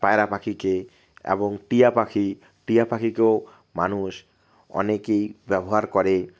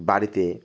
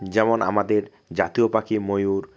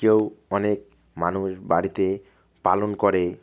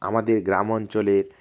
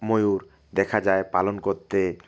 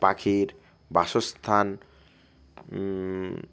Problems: none marked